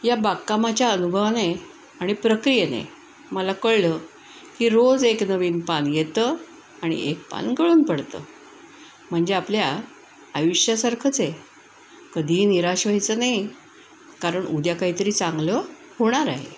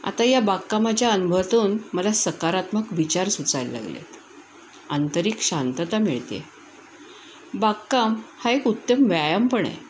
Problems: none marked